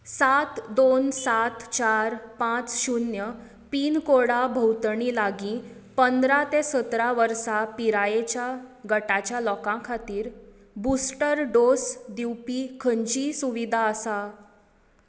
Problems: echo